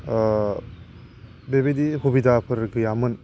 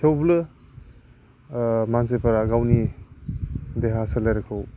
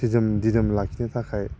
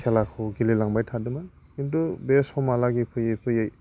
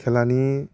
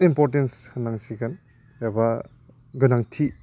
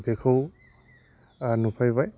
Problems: low volume